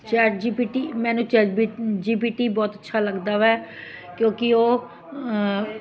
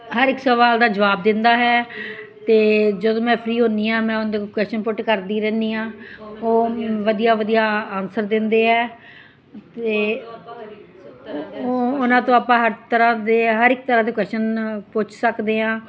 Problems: continuous background conversations